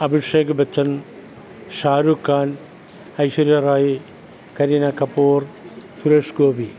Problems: none marked